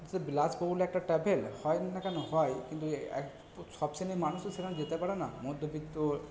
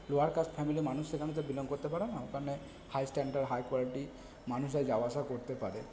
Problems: none marked